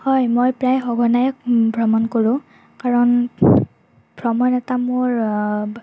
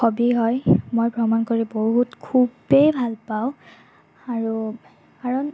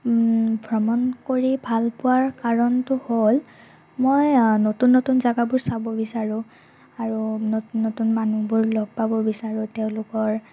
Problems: constant background noise